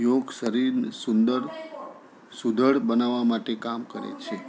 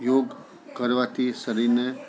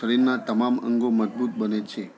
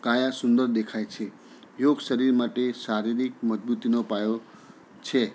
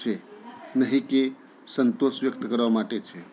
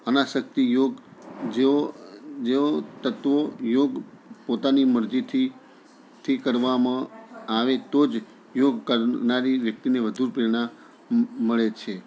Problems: continuous background conversations